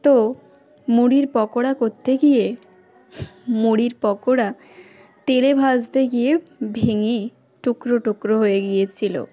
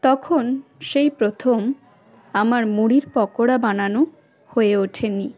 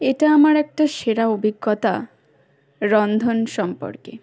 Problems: constant background noise